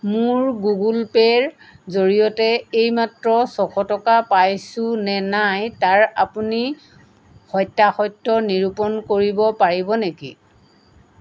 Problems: none marked